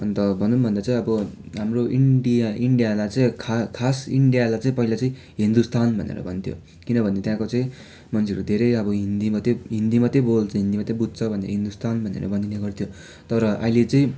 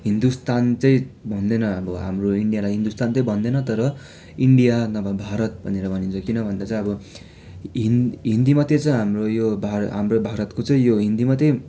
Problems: background sounds at intervals